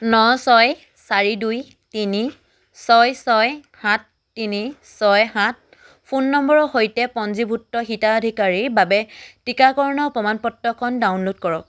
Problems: none marked